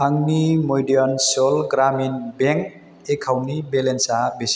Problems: constant background noise